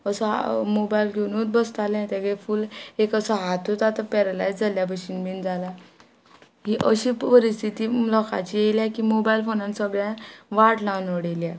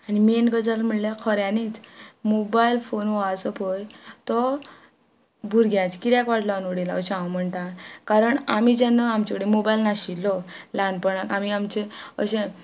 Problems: background sounds at intervals